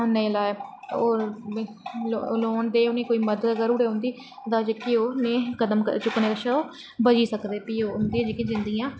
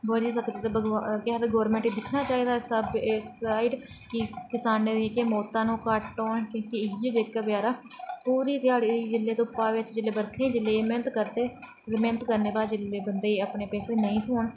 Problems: background sounds at intervals